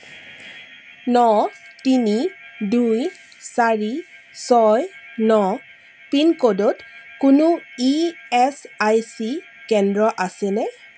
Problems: constant background noise